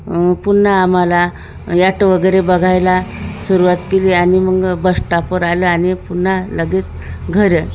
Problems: none marked